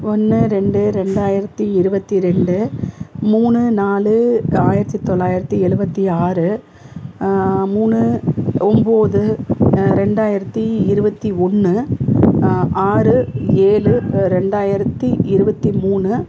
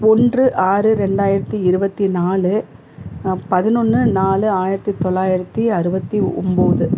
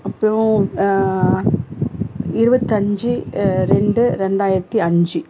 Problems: constant background noise